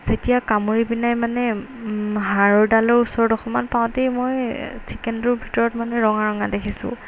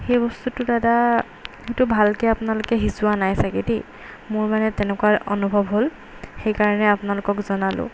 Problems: background sounds at intervals